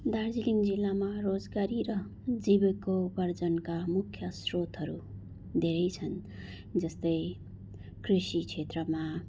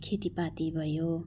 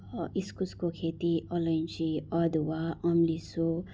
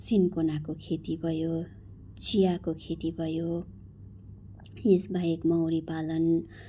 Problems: background sounds at intervals